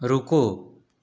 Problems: none marked